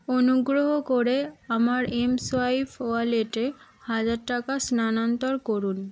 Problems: none marked